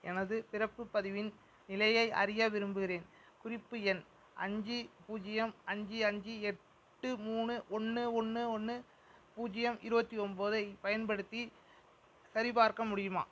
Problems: none marked